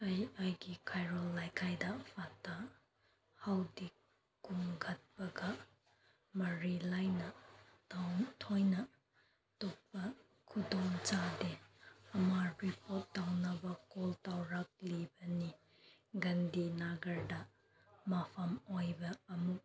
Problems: constant background noise, background conversations at intervals